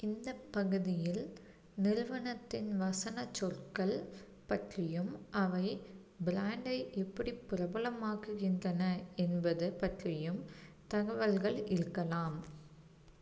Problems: low volume